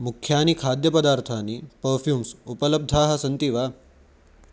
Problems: none marked